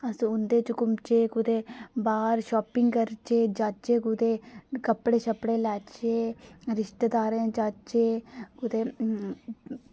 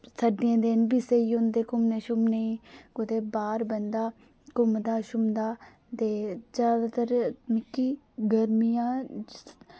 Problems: none marked